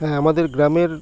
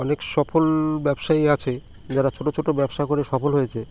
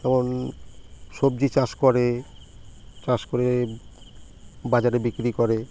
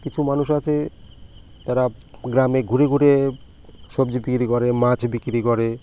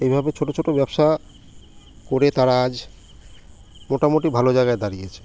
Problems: constant background noise